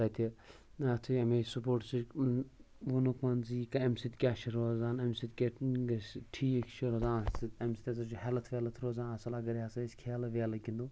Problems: none marked